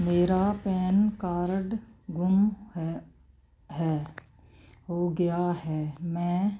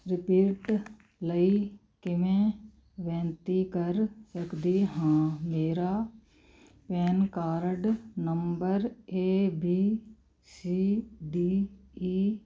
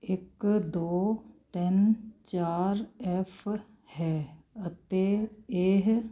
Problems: constant background noise